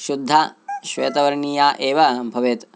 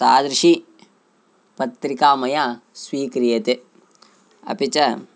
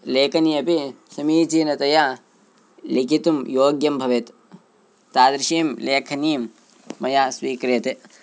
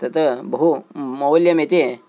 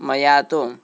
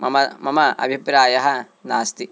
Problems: constant background noise